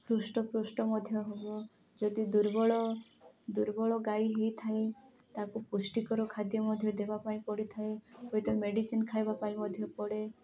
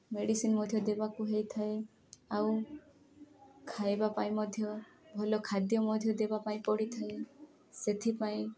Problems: continuous background conversations